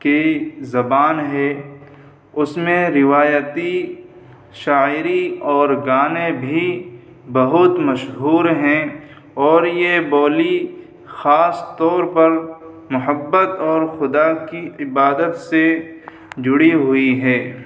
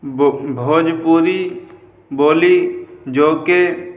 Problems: constant background noise